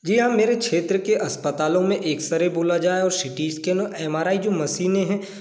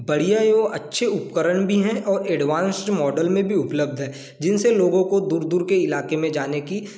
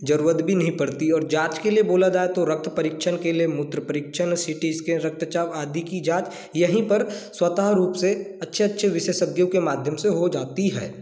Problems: constant background noise